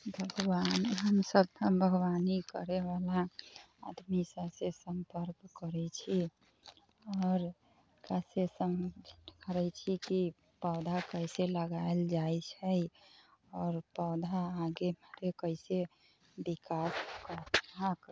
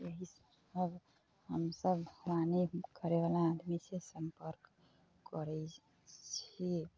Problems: low volume